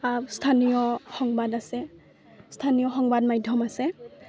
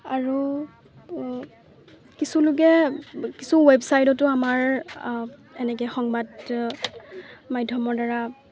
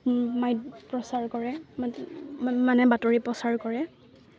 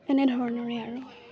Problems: constant background noise, background conversations at intervals